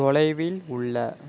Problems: none marked